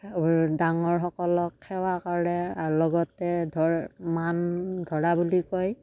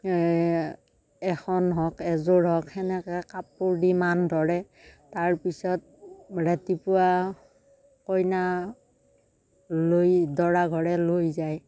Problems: none marked